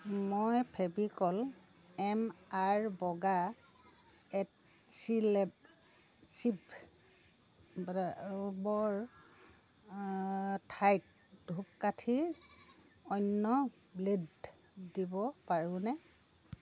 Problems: constant background noise